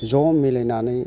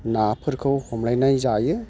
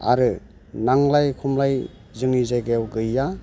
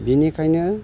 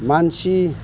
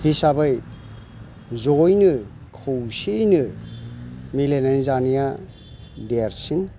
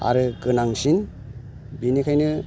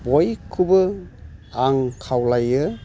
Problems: constant background noise